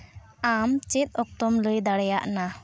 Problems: background sounds at intervals